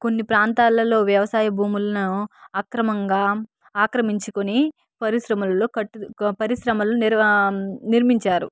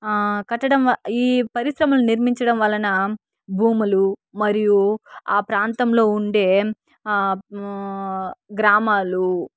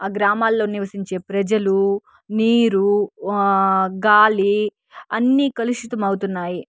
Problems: background sounds at intervals